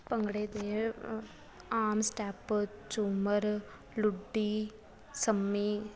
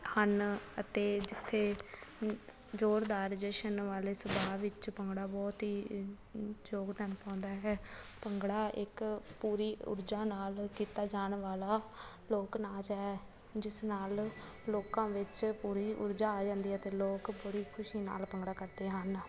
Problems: constant background noise